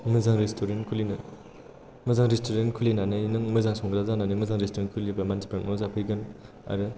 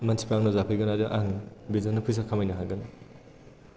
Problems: none marked